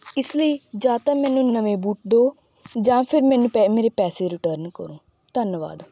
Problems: background sounds at intervals